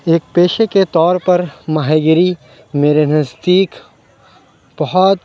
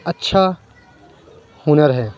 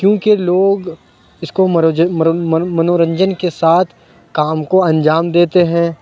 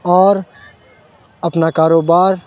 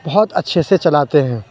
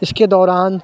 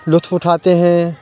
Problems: background sounds at intervals